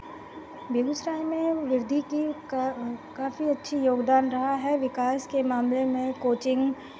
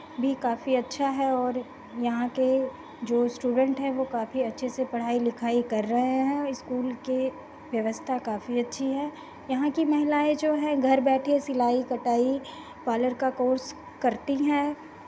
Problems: constant background noise